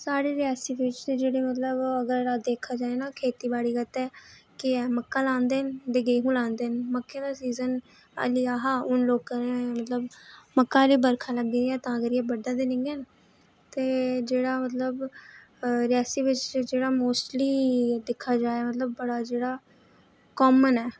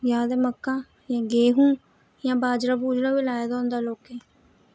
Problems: none marked